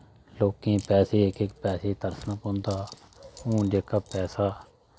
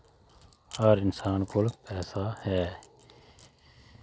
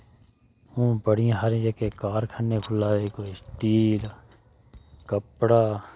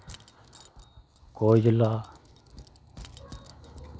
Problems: constant background noise